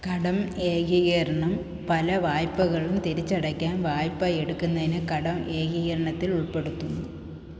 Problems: none marked